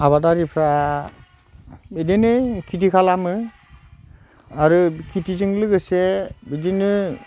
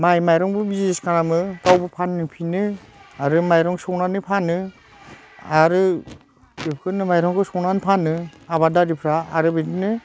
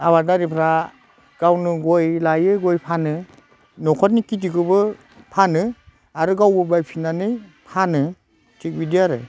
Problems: constant background noise